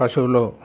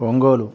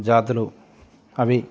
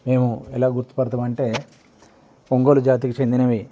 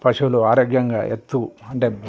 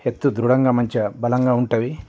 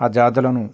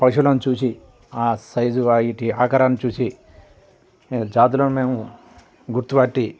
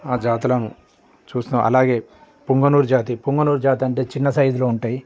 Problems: none marked